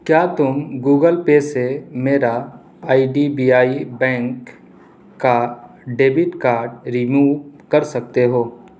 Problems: constant background noise